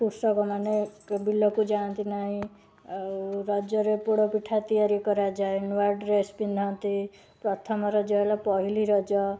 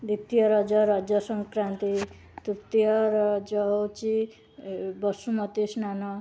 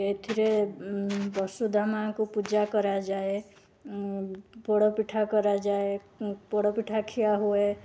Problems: constant background noise, continuous background conversations